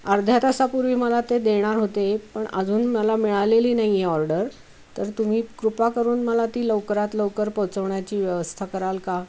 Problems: constant background noise